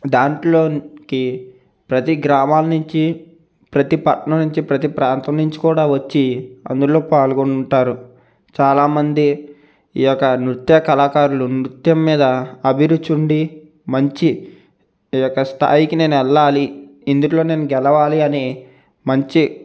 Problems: none marked